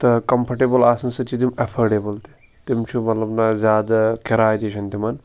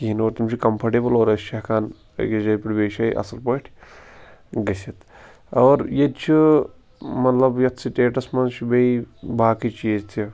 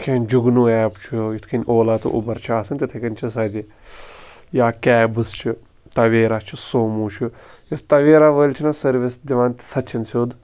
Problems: constant background noise